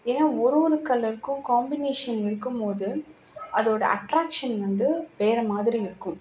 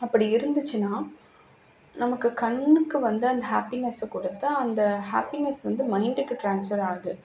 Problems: background sounds at intervals